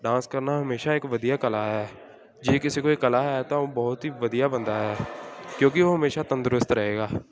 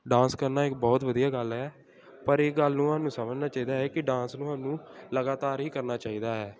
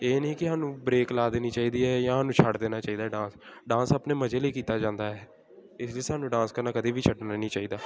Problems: none marked